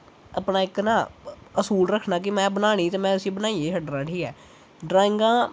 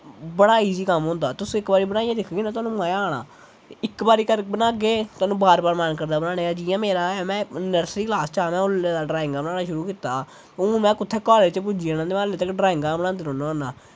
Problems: constant background noise